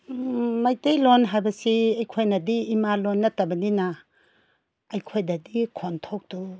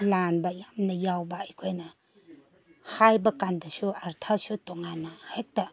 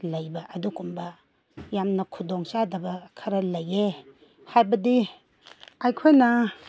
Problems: none marked